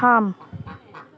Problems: background sounds at intervals